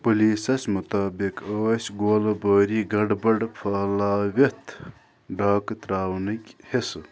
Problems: none marked